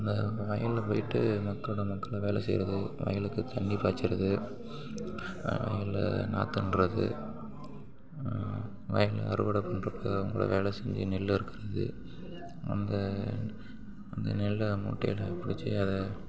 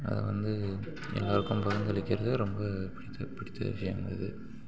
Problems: background sounds at intervals, continuous background conversations